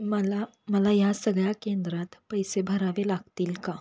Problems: constant background noise